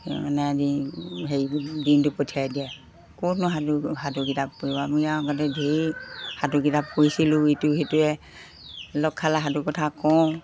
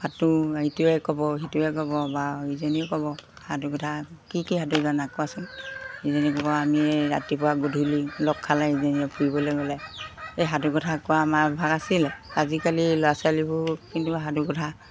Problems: none marked